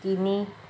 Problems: none marked